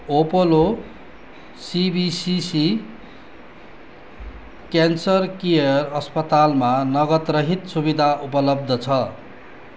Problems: constant background noise